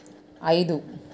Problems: none marked